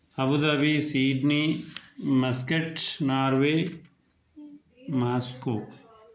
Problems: none marked